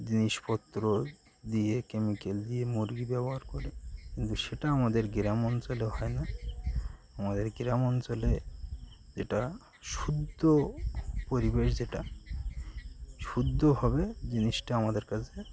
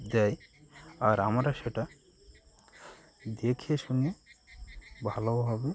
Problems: constant background noise